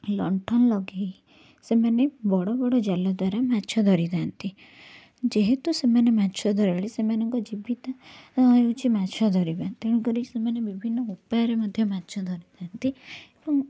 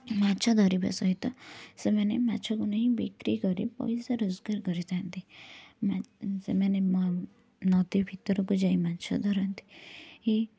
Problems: none marked